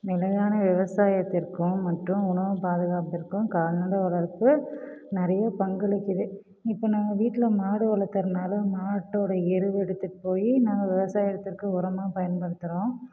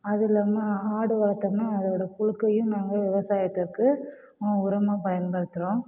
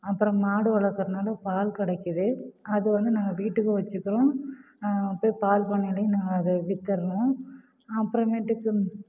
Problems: none marked